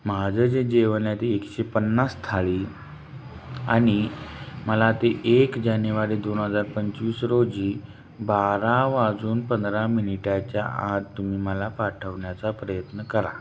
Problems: constant background noise